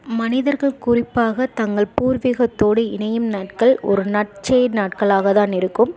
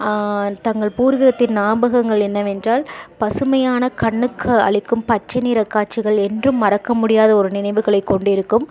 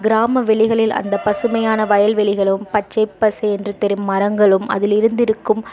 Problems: constant background noise, background conversations at intervals